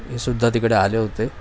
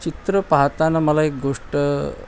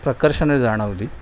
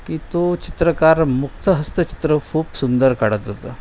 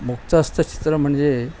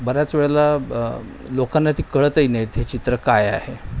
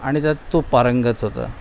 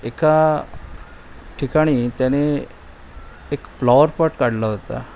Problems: none marked